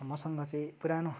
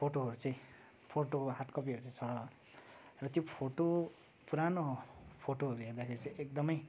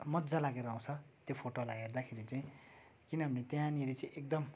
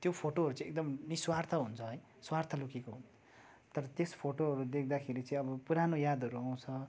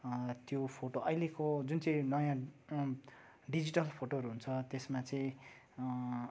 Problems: constant background noise, background conversations at intervals